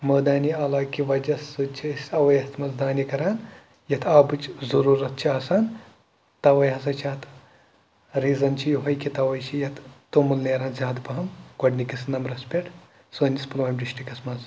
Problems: background sounds at intervals